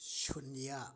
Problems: low volume